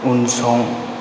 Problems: low volume